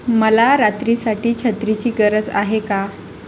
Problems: constant background noise